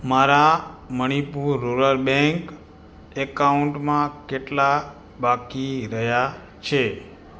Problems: background sounds at intervals